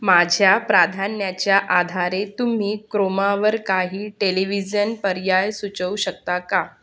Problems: none marked